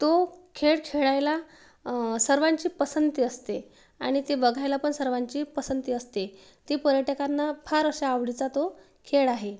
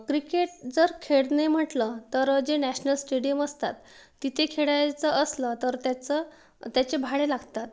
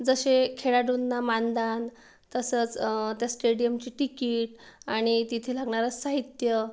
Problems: background sounds at intervals